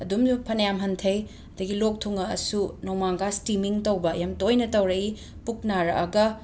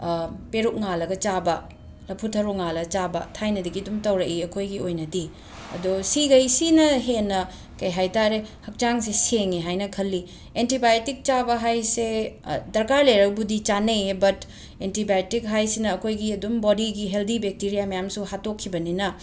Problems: background sounds at intervals